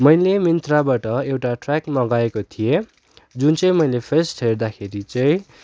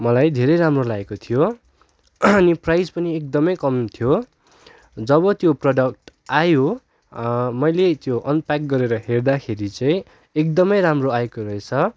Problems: none marked